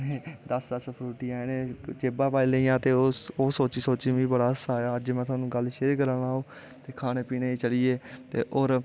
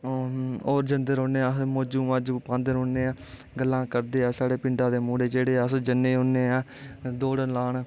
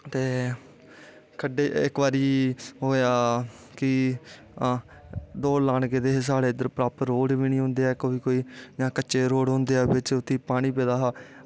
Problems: constant background noise